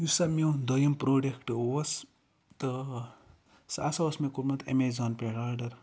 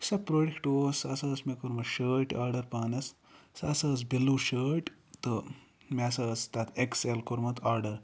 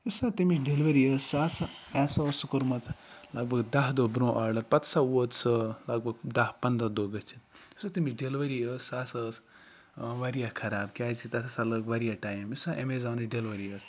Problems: background sounds at intervals, background conversations at intervals